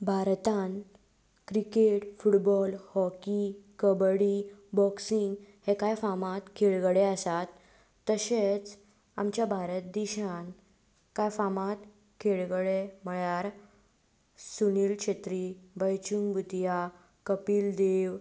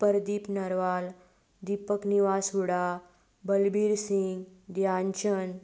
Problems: constant background noise